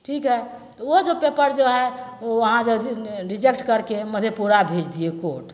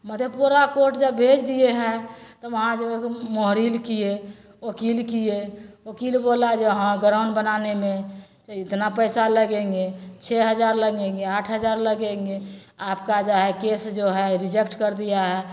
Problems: none marked